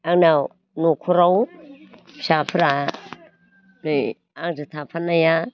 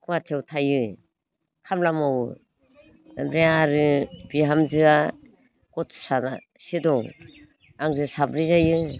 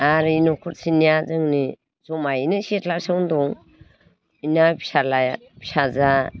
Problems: none marked